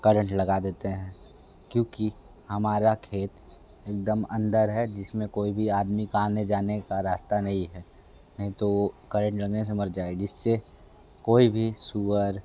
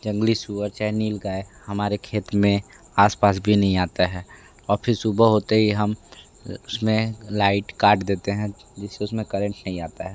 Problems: none marked